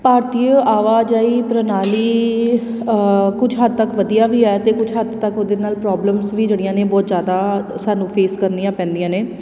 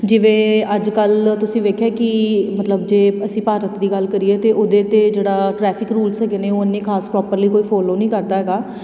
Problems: background sounds at intervals